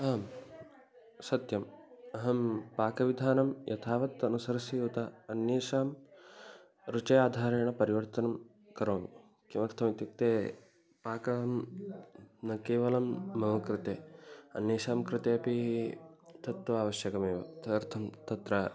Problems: background conversations at intervals